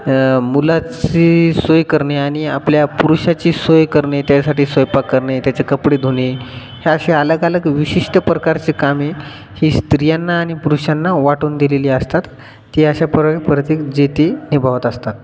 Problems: none marked